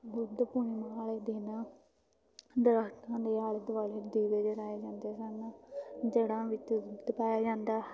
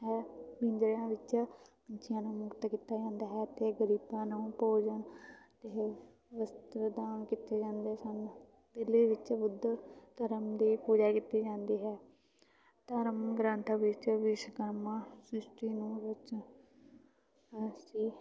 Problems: background sounds at intervals, continuous background conversations